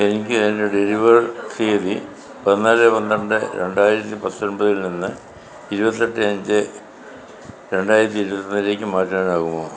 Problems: none marked